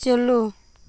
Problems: constant background noise